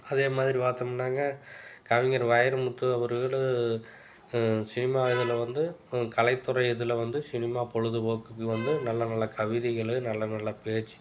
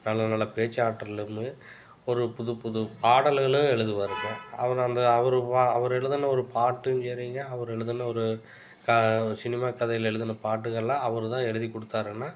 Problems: background sounds at intervals